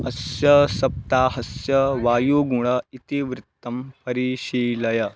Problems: none marked